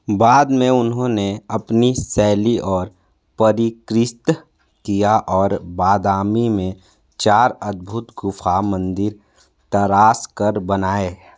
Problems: constant background noise